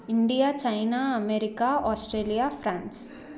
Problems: background conversations at intervals